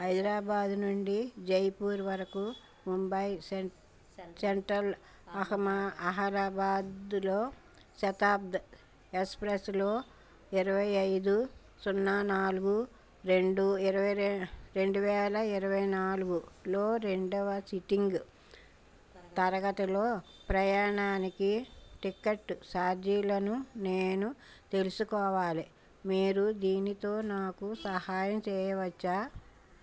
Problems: background conversations at intervals